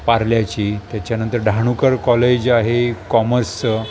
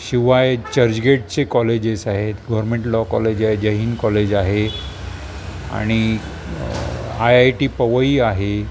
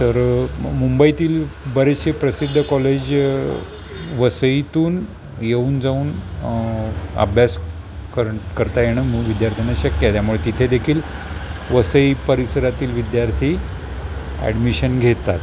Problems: constant background noise